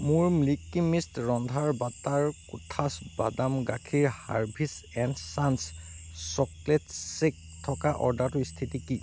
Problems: constant background noise